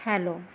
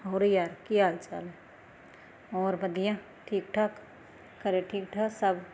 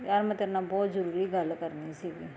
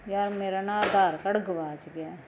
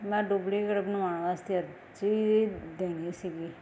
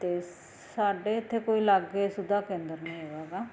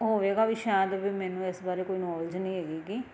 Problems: constant background noise